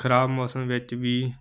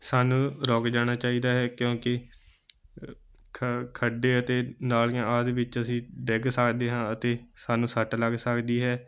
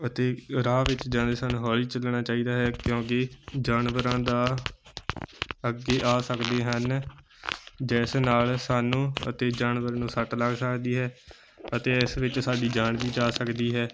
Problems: background sounds at intervals